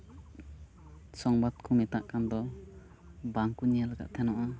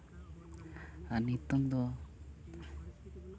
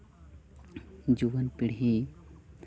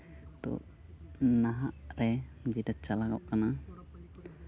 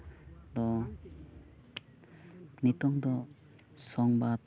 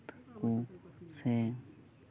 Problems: background conversations at intervals